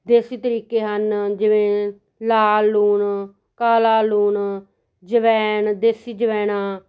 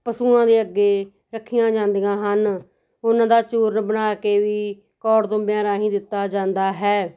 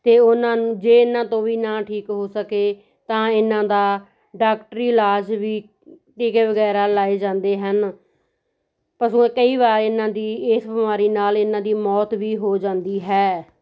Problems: none marked